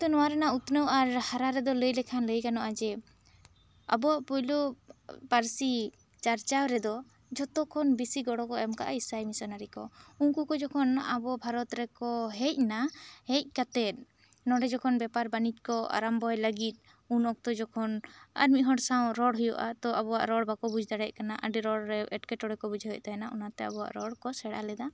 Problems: none marked